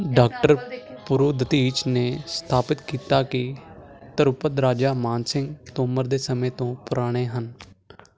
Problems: constant background noise